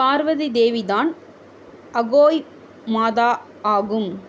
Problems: constant background noise